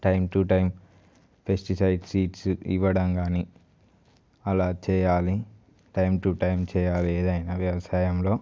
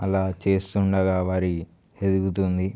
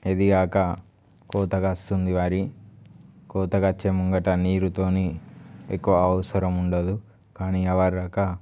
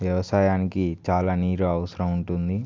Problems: none marked